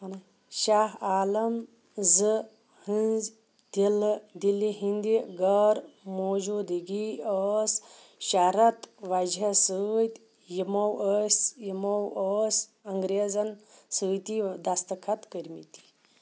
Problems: constant background noise